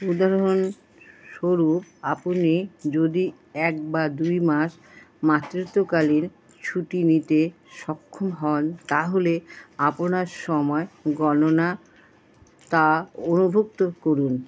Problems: constant background noise